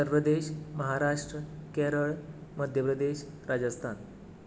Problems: background sounds at intervals